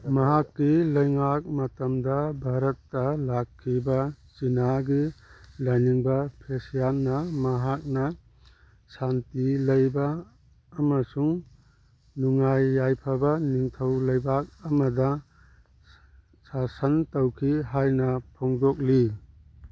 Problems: background conversations at intervals